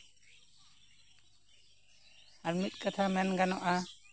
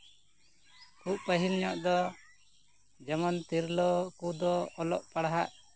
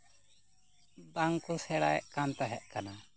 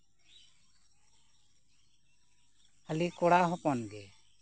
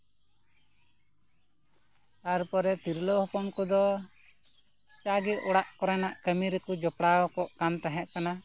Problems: constant background noise, background conversations at intervals